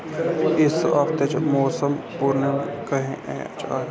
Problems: constant background noise